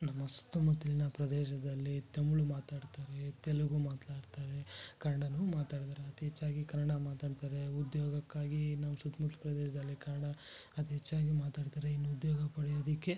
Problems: low volume